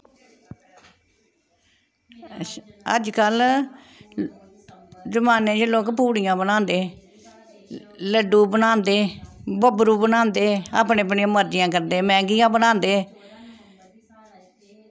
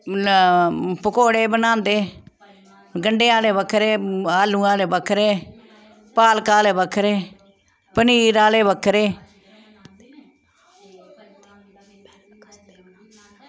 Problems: background conversations at intervals